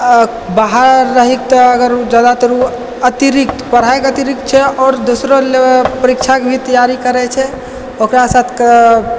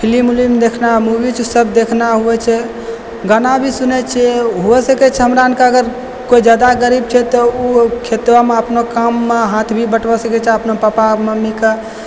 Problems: background sounds at intervals